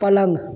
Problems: none marked